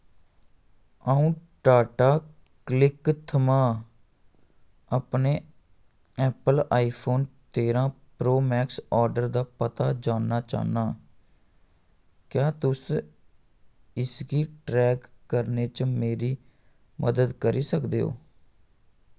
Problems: none marked